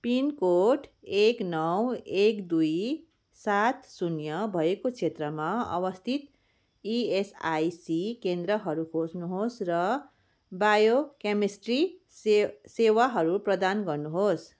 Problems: none marked